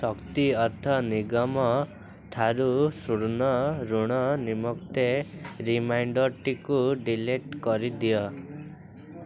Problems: continuous background conversations